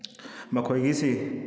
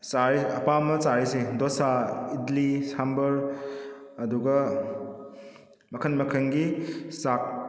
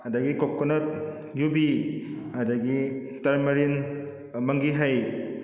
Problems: background sounds at intervals